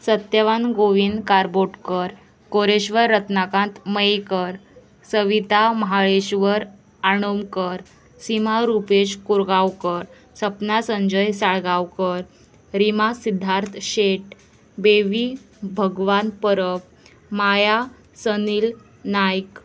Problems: constant background noise